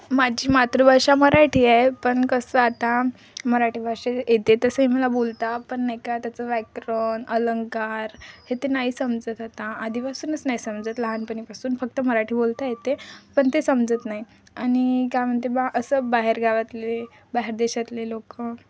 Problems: none marked